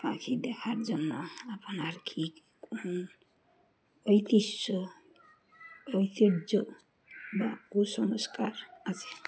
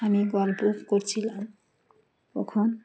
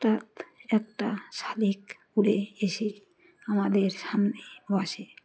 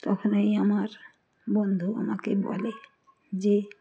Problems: constant background noise, background conversations at intervals